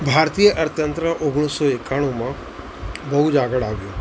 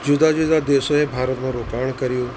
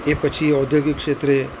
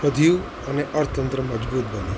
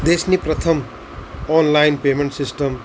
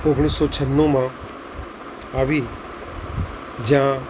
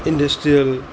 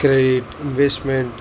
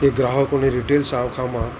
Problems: constant background noise